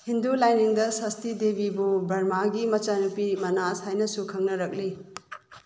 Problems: background sounds at intervals